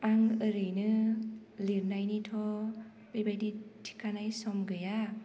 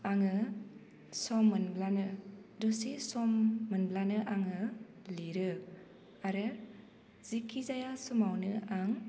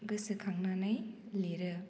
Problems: constant background noise